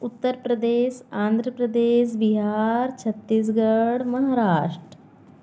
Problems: constant background noise